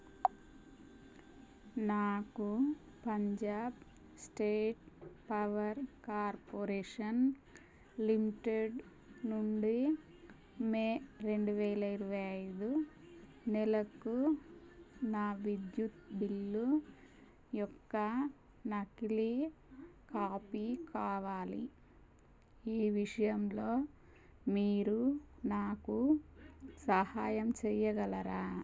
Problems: none marked